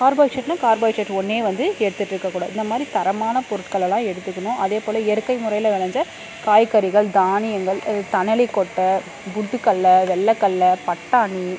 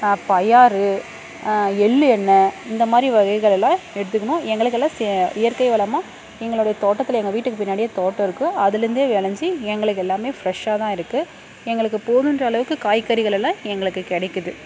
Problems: constant background noise